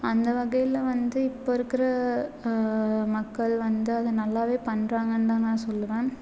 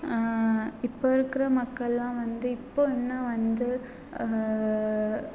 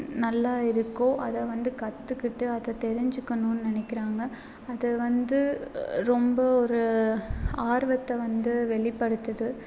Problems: none marked